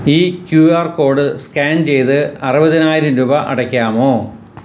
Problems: constant background noise